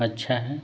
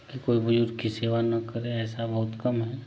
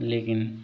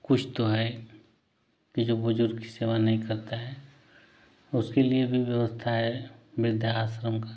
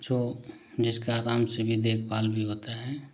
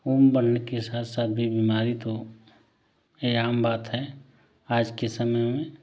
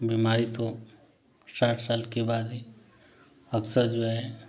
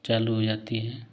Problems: none marked